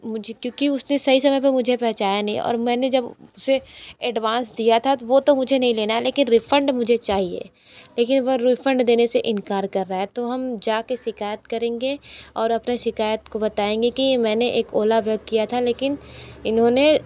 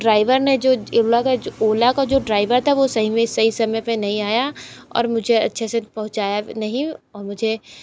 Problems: none marked